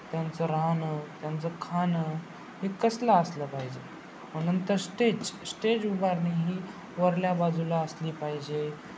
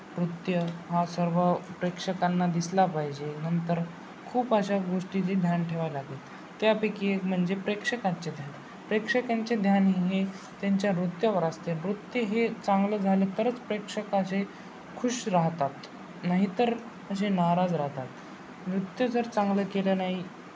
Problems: constant background noise, background conversations at intervals